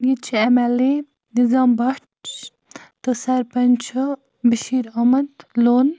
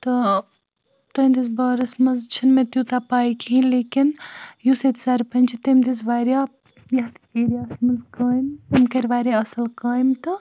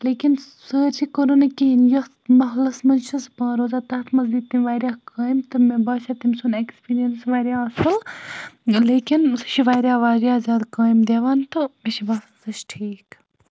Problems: none marked